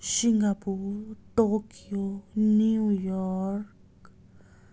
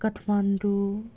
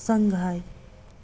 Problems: constant background noise